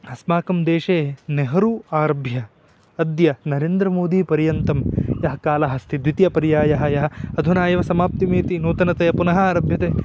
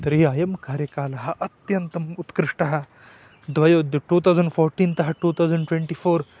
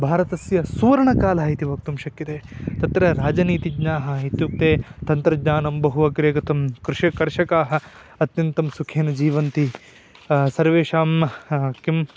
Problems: none marked